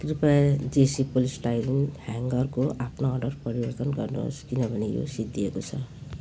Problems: none marked